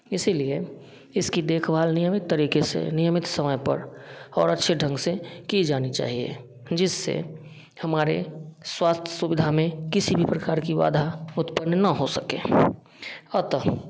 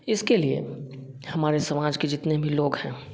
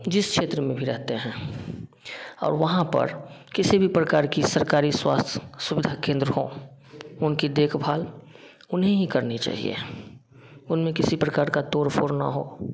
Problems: none marked